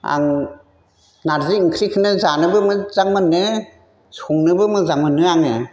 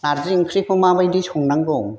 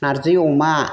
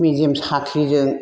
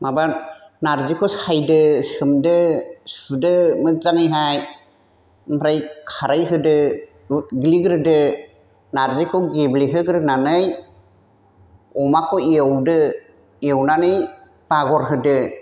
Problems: none marked